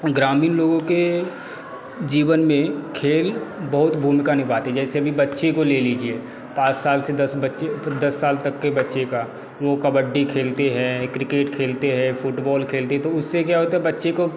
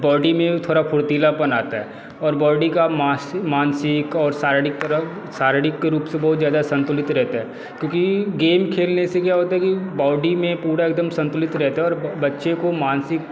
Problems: constant background noise, background conversations at intervals